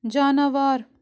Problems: none marked